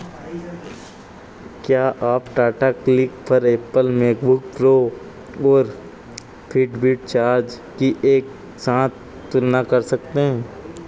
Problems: constant background noise